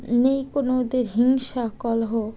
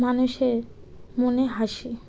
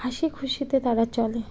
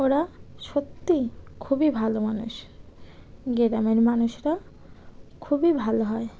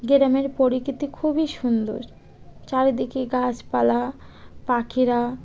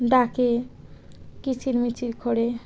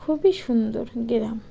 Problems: background conversations at intervals